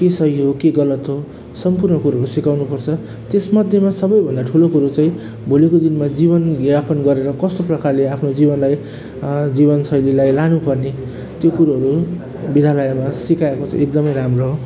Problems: constant background noise